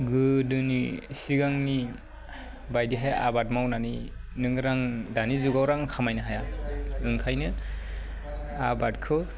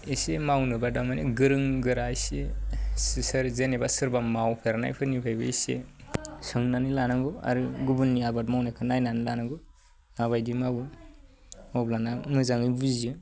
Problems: low volume